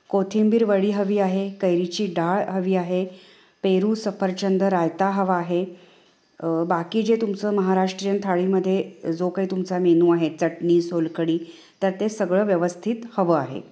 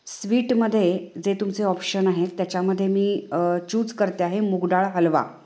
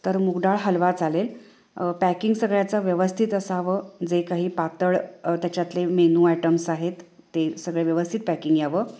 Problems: constant background noise, echo